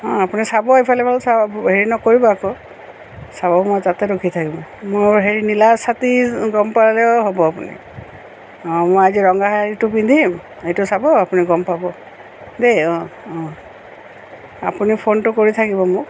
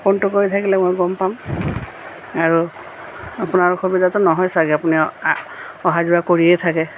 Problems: none marked